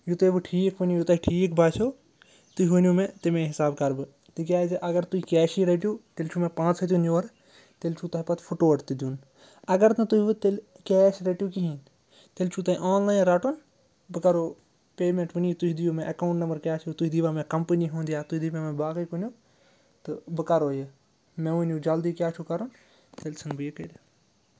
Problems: none marked